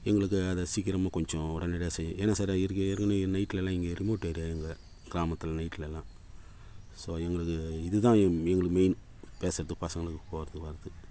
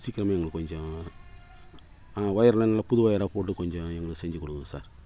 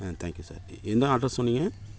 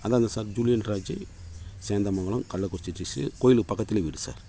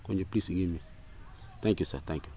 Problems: constant background noise